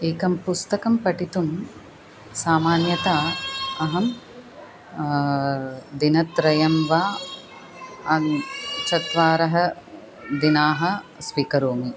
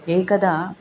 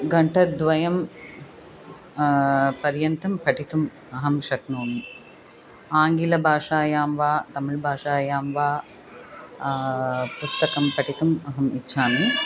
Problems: constant background noise, continuous background conversations